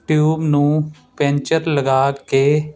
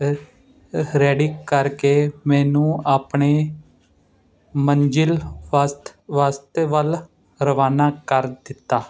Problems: constant background noise